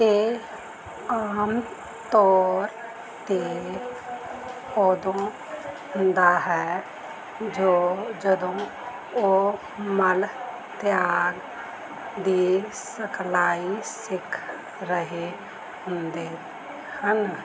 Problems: background sounds at intervals